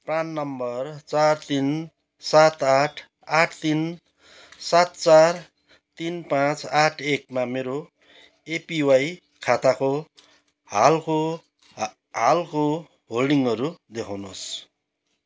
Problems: background sounds at intervals